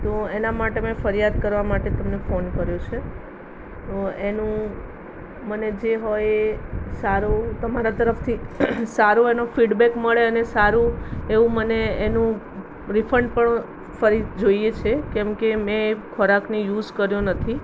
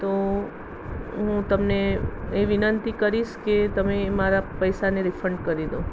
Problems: constant background noise